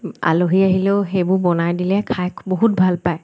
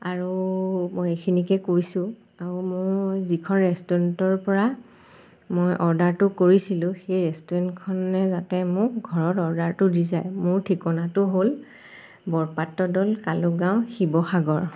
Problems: constant background noise